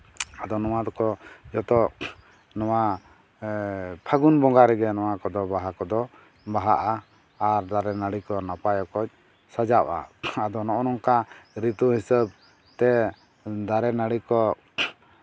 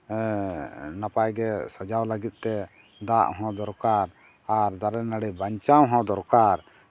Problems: none marked